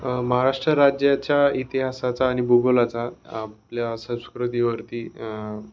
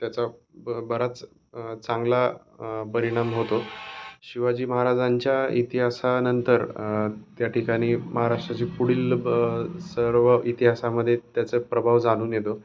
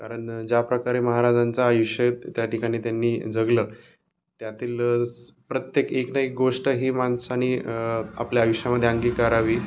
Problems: none marked